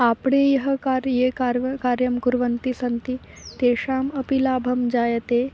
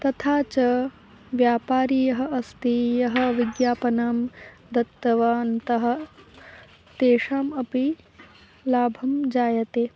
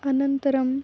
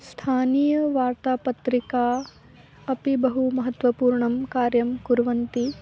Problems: background sounds at intervals